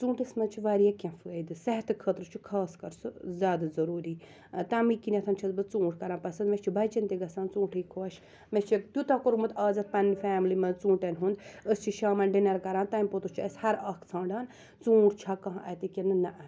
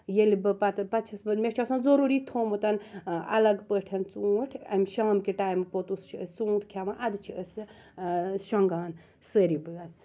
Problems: background sounds at intervals